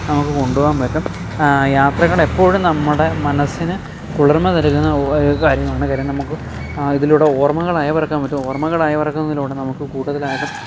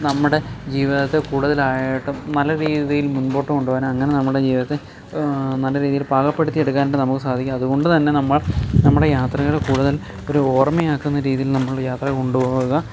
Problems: background sounds at intervals